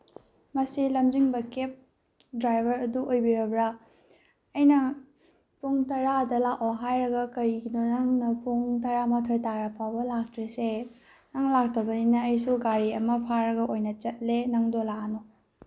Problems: none marked